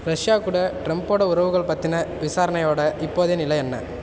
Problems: constant background noise